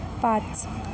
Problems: constant background noise